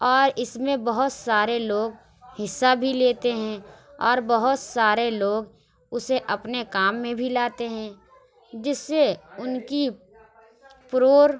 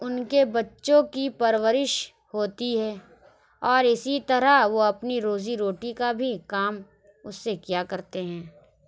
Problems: none marked